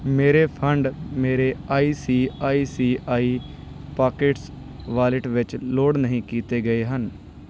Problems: background sounds at intervals